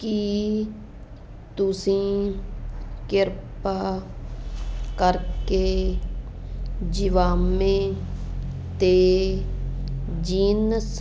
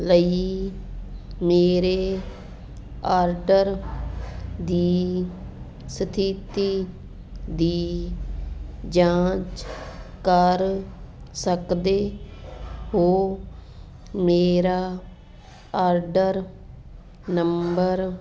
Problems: constant background noise